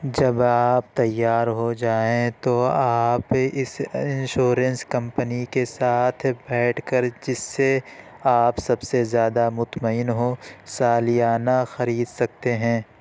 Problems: constant background noise